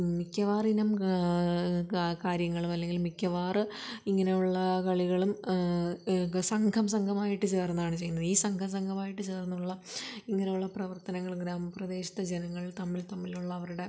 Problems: background sounds at intervals, low volume